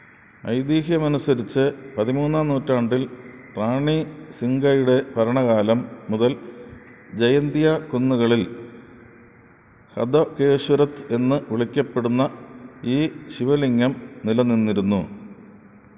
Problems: none marked